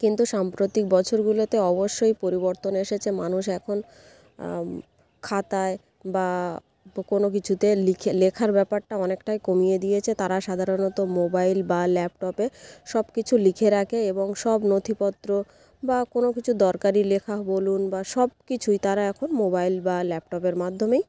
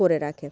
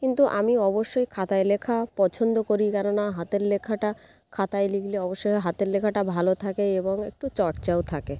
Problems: background sounds at intervals